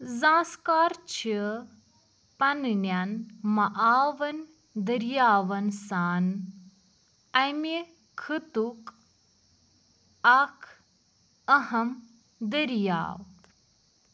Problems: background sounds at intervals